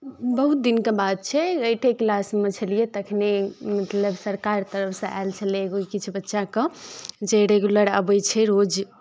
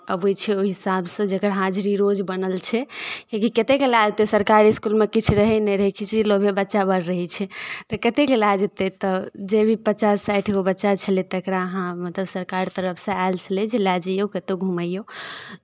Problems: none marked